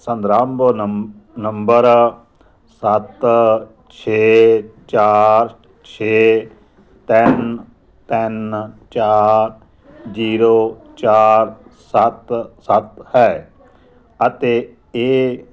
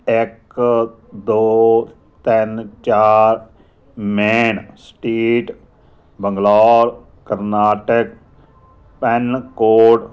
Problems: background conversations at intervals